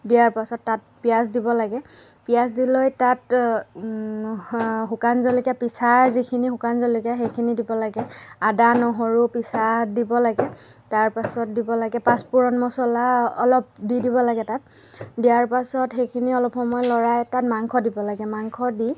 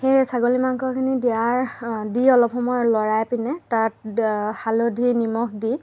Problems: constant background noise